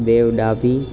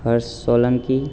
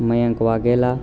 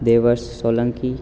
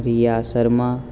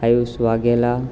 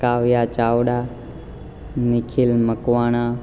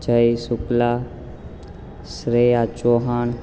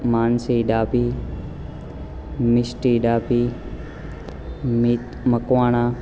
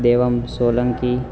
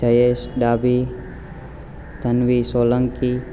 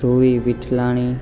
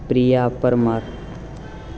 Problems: constant background noise